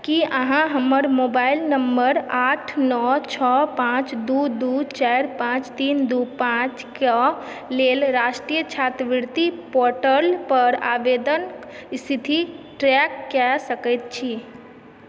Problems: background sounds at intervals